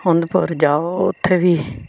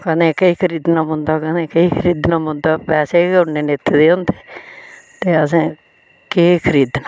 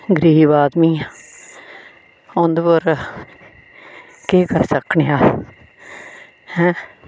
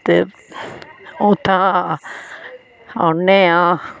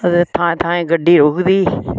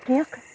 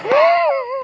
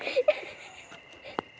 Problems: background sounds at intervals